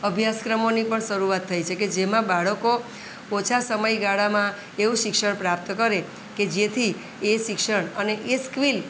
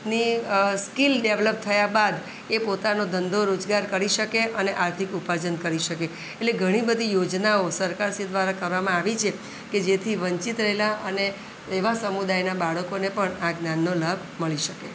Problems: none marked